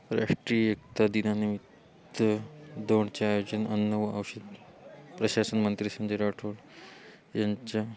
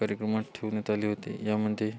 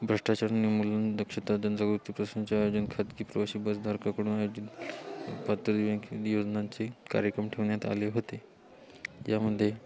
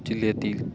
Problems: none marked